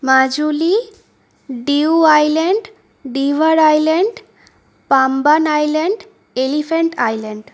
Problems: background sounds at intervals